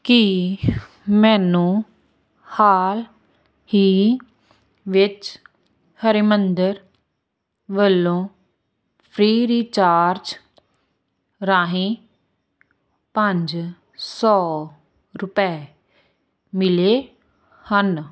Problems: constant background noise